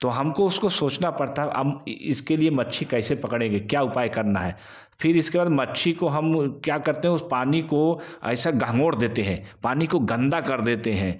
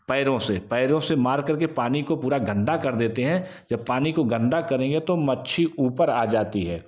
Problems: constant background noise, background conversations at intervals